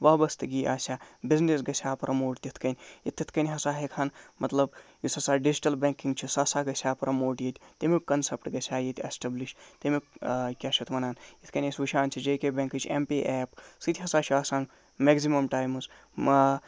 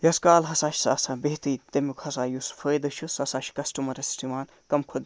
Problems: none marked